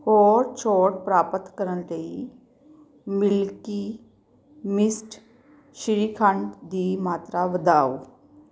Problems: none marked